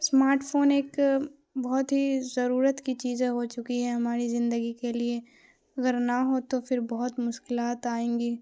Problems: constant background noise